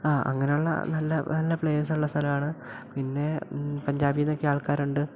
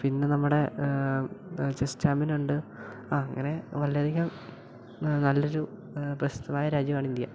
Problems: background sounds at intervals